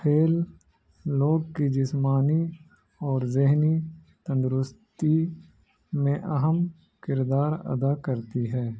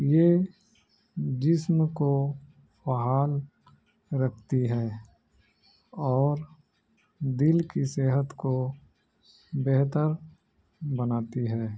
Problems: none marked